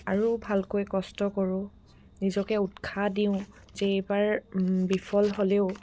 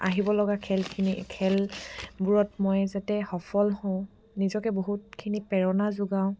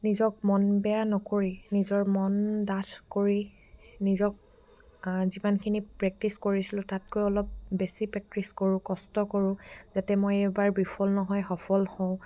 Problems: background sounds at intervals